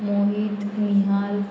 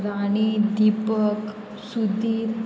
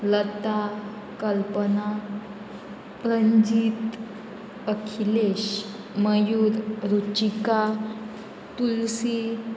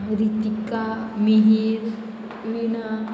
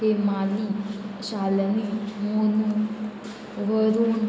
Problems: constant background noise, continuous background conversations